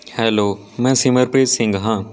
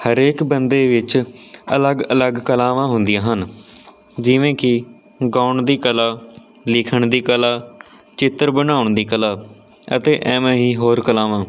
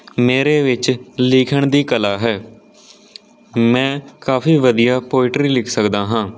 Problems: none marked